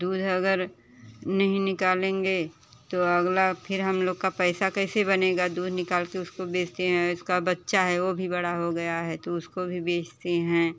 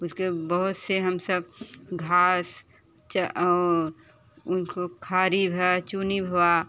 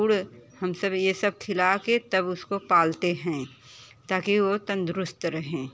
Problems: none marked